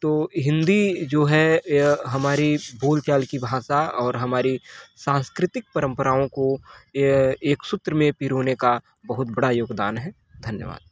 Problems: constant background noise, background conversations at intervals